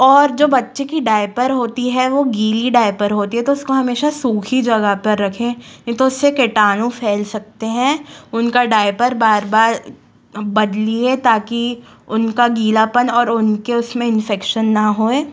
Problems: background sounds at intervals